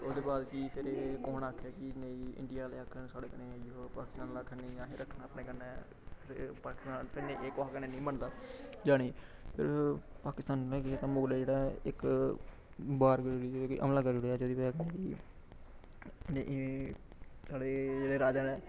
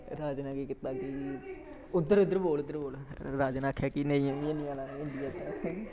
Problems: constant background noise, background conversations at intervals, low volume